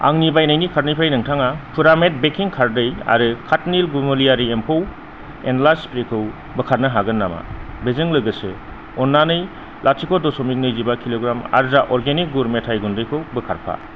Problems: constant background noise, low volume